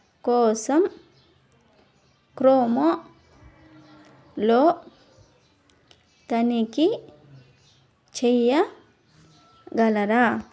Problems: background sounds at intervals, background conversations at intervals